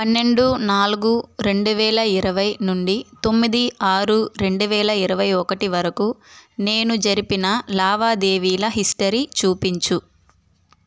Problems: constant background noise